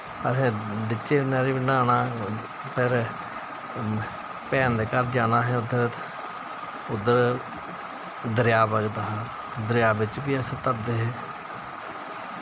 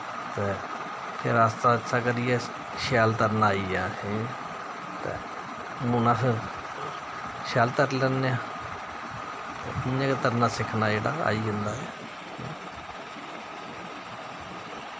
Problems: constant background noise